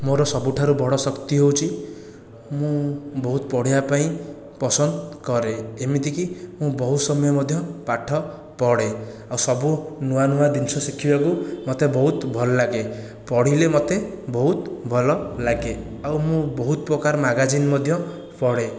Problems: none marked